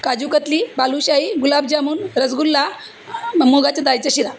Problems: constant background noise, background conversations at intervals